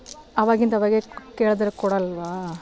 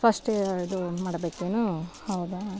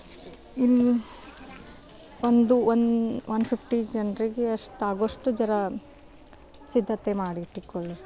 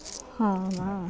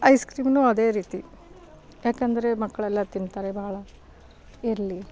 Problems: none marked